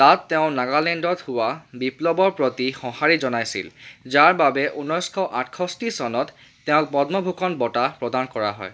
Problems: none marked